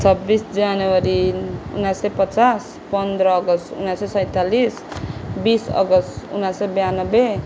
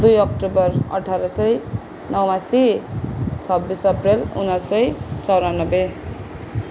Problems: constant background noise